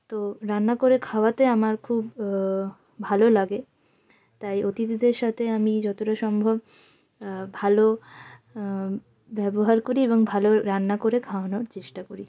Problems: none marked